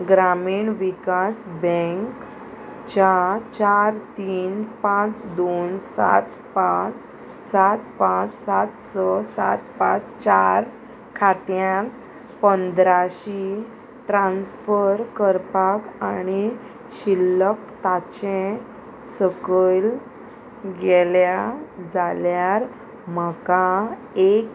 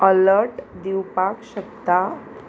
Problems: constant background noise